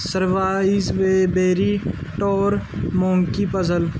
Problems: none marked